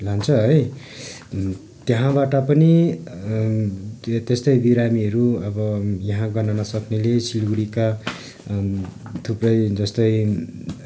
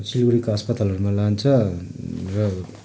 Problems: none marked